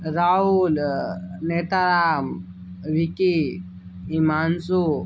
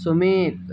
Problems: none marked